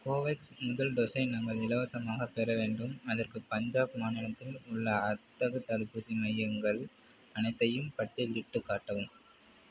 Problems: none marked